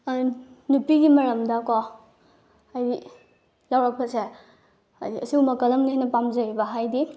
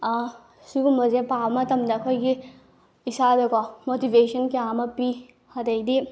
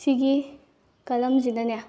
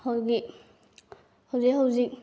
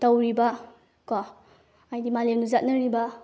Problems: background sounds at intervals